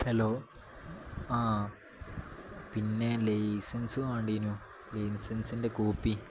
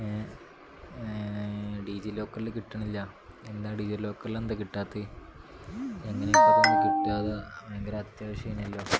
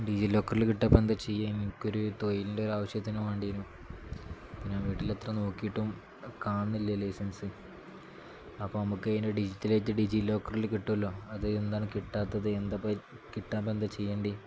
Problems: background sounds at intervals